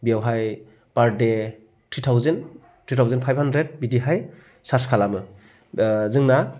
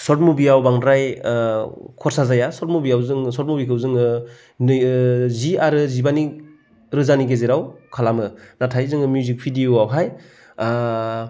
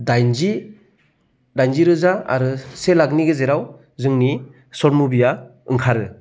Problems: low volume